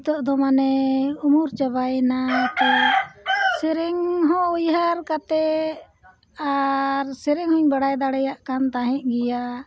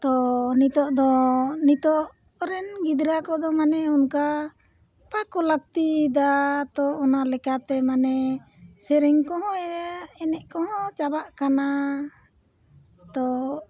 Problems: background sounds at intervals